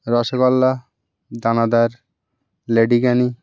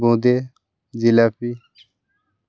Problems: none marked